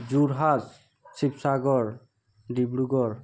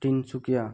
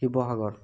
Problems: none marked